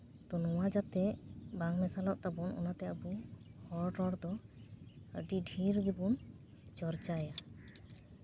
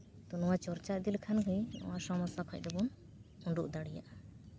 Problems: none marked